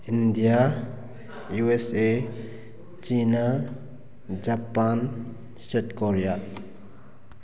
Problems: background conversations at intervals